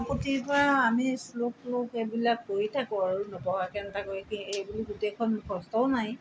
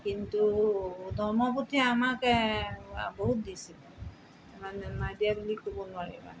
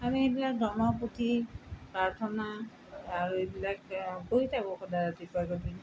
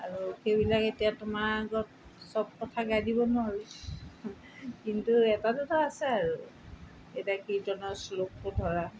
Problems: background sounds at intervals